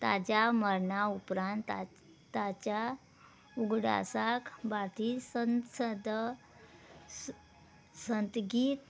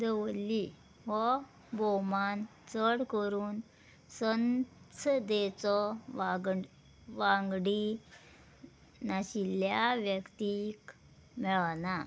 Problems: background sounds at intervals